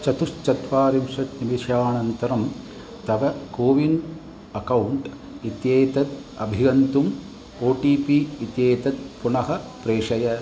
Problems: none marked